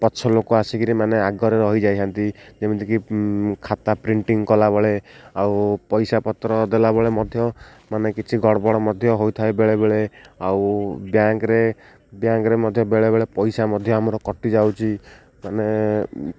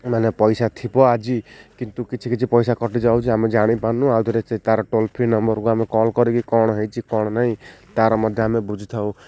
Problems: none marked